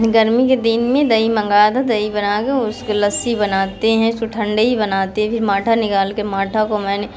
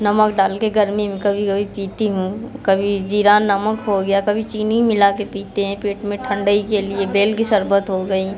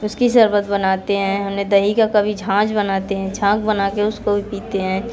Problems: background sounds at intervals, background conversations at intervals